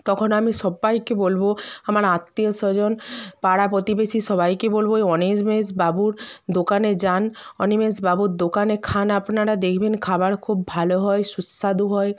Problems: continuous background conversations